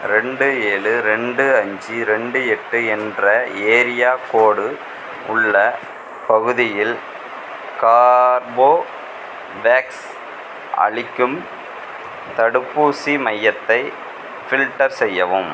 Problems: constant background noise